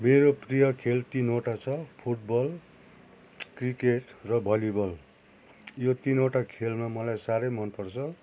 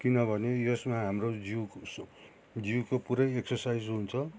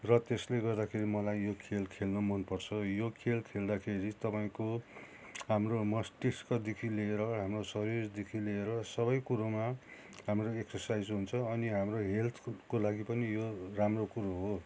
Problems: constant background noise